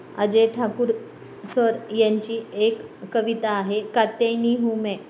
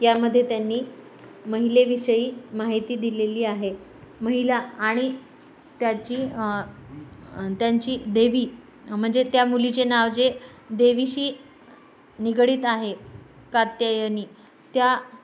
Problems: none marked